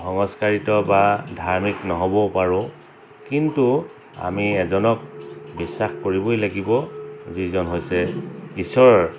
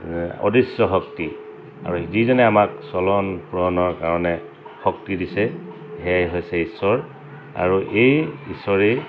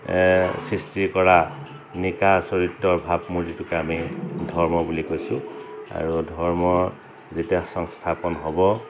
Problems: constant background noise, background conversations at intervals